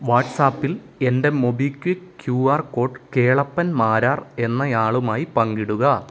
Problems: none marked